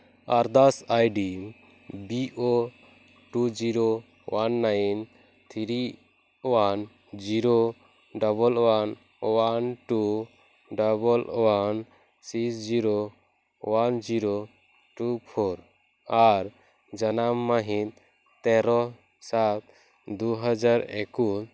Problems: none marked